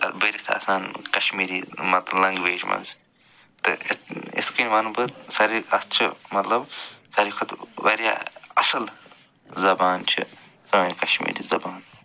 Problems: none marked